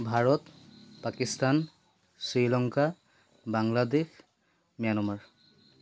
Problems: constant background noise